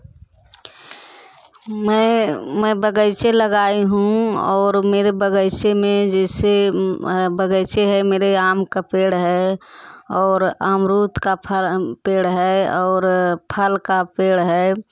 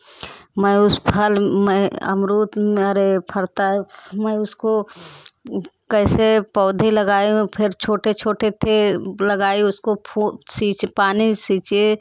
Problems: none marked